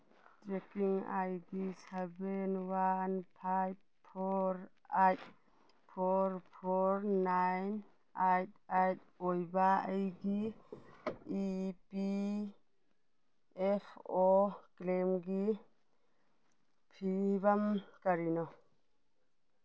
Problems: none marked